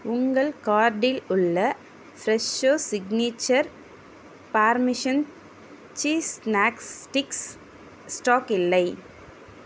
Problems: none marked